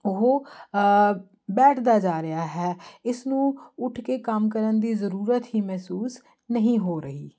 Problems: constant background noise